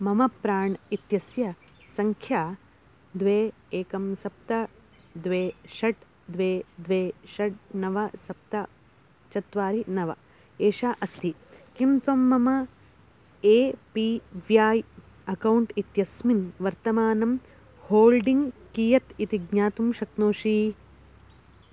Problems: none marked